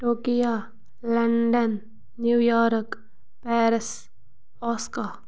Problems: none marked